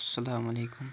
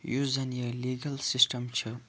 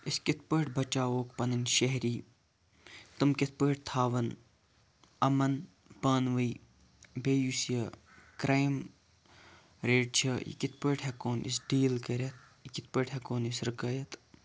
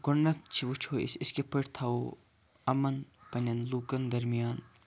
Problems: background sounds at intervals, low volume